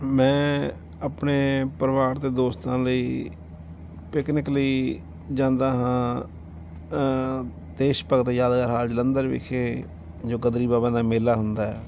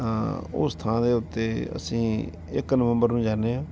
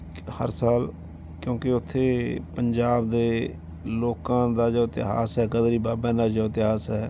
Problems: none marked